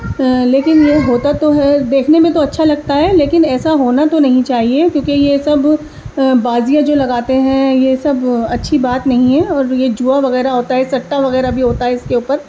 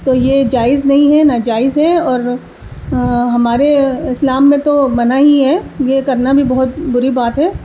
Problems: constant background noise, background conversations at intervals